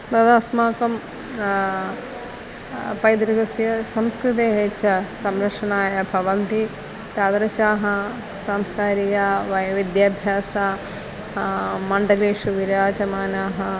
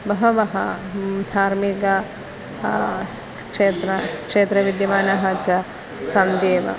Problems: constant background noise, background conversations at intervals